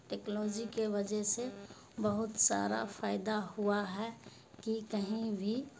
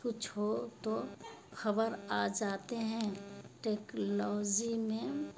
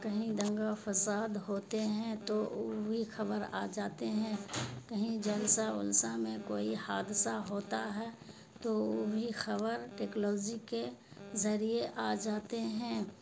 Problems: constant background noise